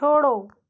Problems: none marked